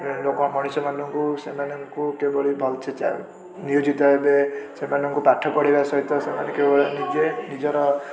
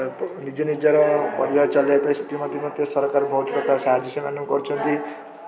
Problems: constant background noise, continuous background conversations